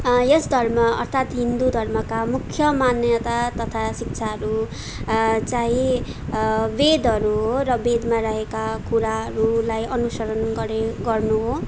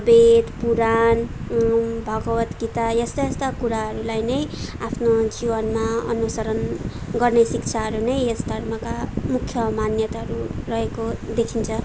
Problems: background sounds at intervals, background conversations at intervals